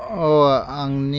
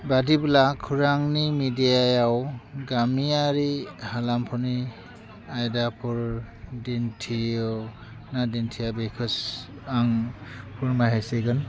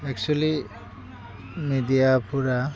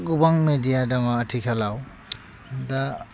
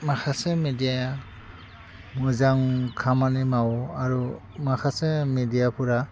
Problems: constant background noise